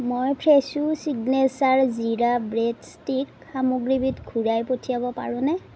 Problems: none marked